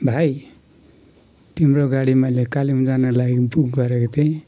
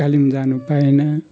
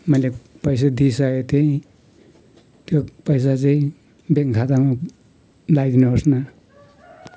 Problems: constant background noise